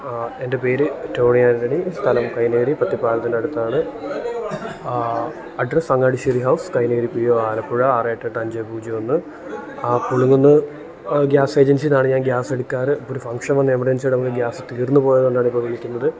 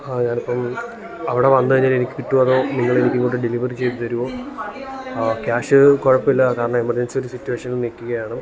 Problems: background conversations at intervals